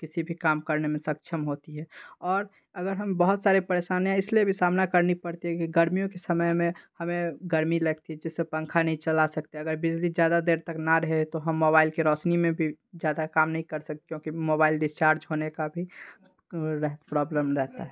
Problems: background sounds at intervals